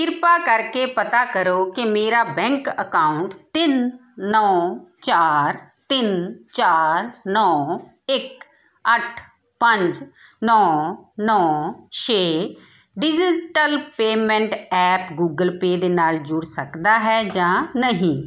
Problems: none marked